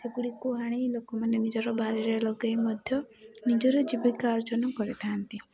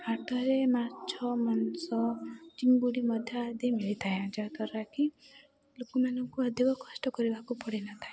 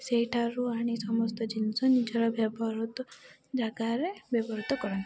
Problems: constant background noise, continuous background conversations